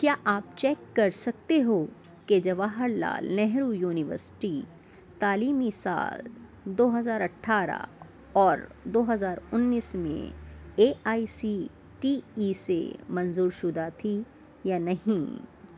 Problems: none marked